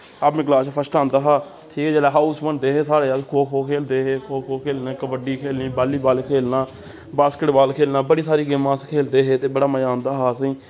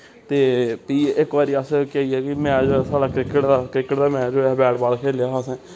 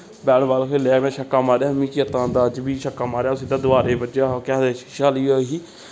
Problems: constant background noise